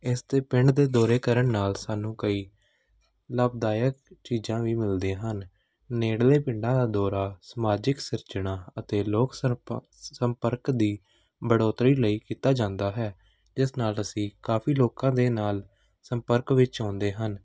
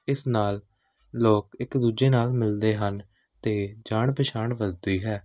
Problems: none marked